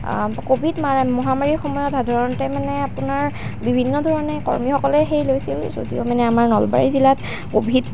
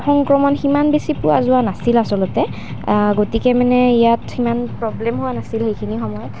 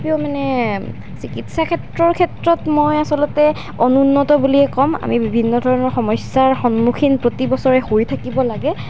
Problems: constant background noise